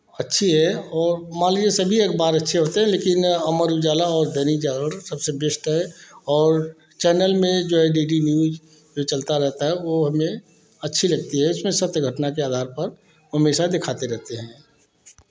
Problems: none marked